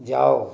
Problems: background sounds at intervals